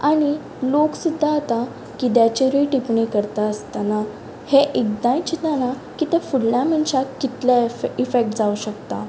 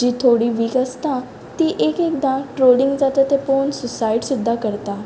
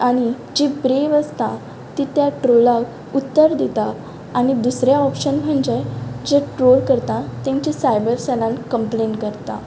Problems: constant background noise, background conversations at intervals